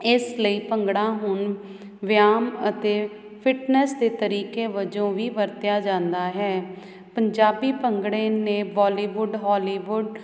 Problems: none marked